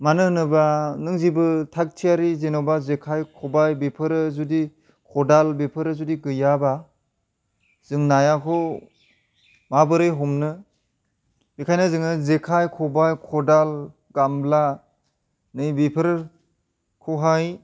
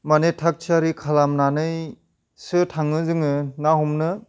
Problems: none marked